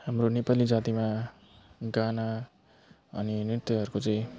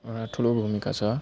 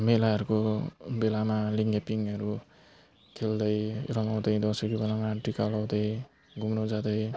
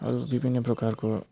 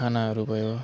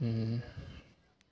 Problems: background sounds at intervals